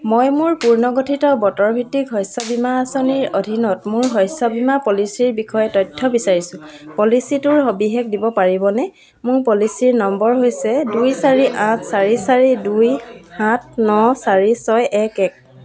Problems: low volume